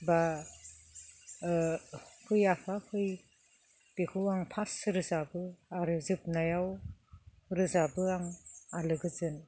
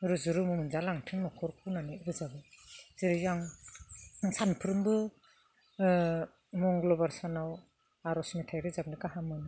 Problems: none marked